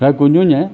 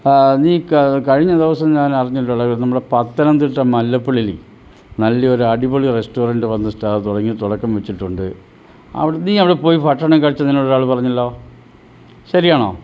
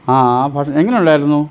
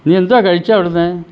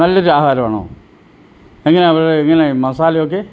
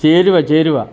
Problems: low volume